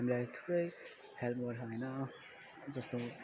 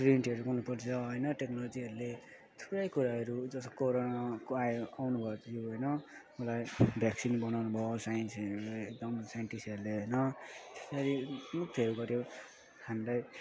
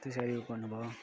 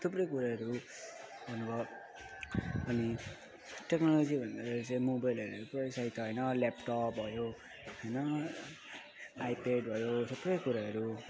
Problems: constant background noise